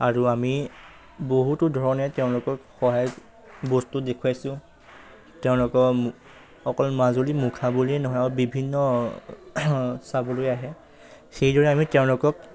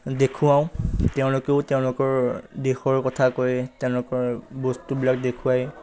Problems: none marked